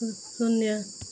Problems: none marked